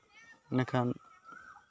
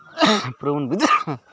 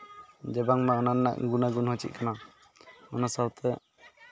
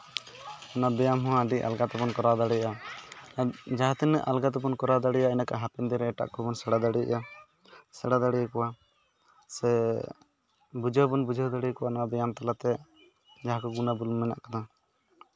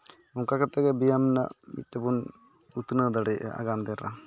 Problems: none marked